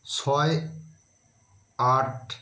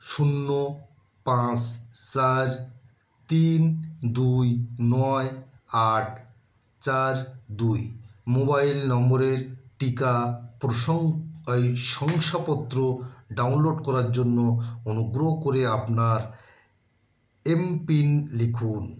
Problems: constant background noise